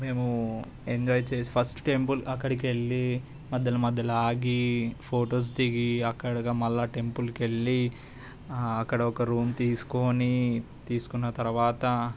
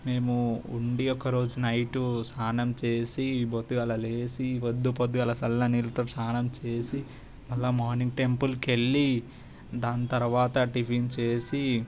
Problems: constant background noise